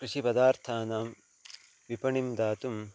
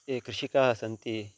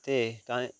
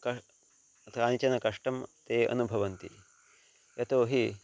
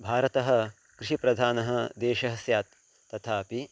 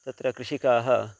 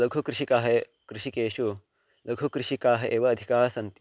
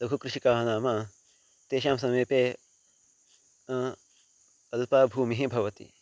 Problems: constant background noise